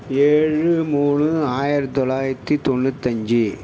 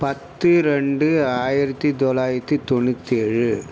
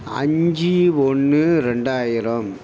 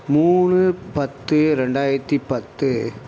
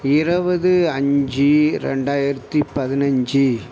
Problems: none marked